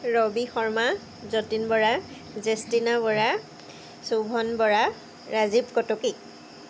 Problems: constant background noise